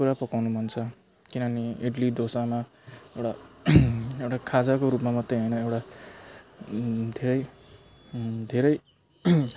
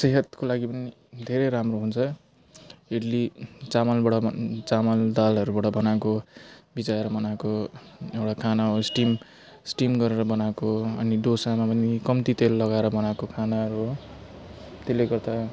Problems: constant background noise